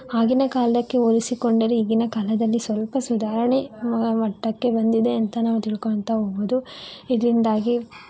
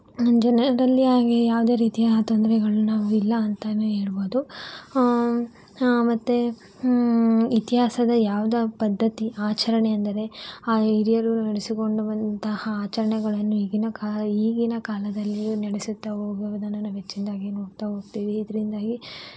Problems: background sounds at intervals